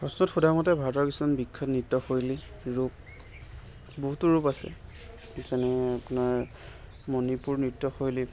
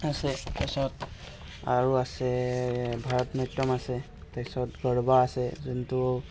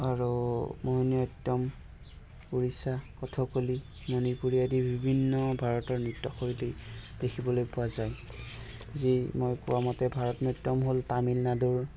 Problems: constant background noise, continuous background conversations